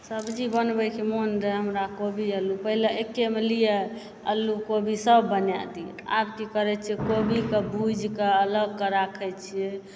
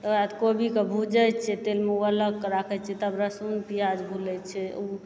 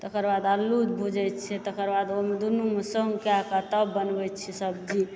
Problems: background sounds at intervals, background conversations at intervals